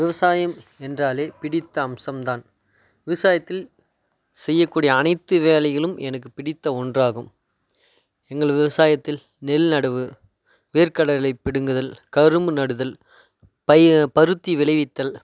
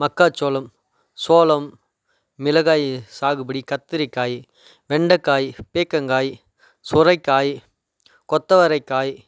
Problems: none marked